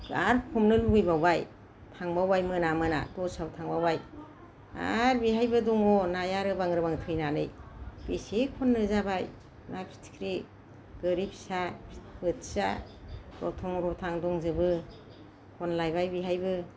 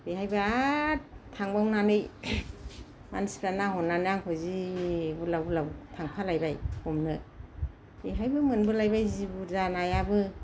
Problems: none marked